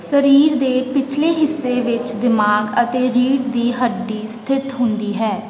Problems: constant background noise, background conversations at intervals